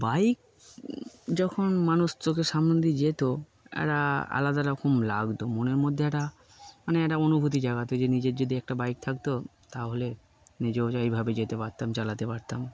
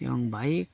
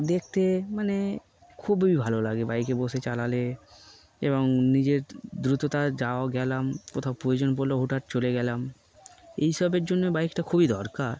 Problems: none marked